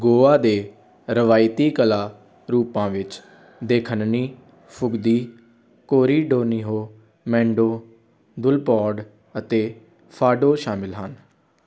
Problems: continuous background conversations